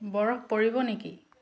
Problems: constant background noise